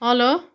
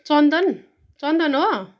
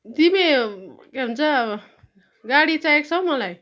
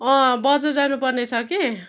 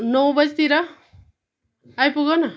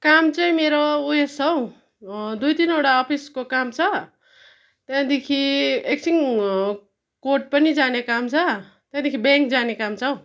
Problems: continuous background conversations